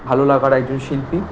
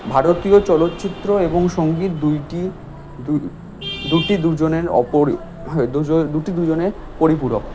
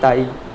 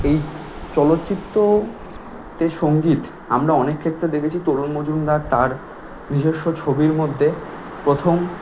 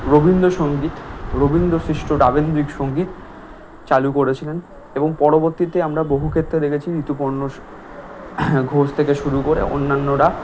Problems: constant background noise